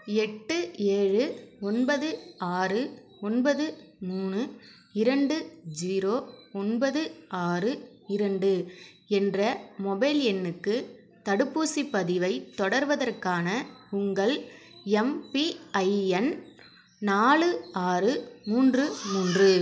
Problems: none marked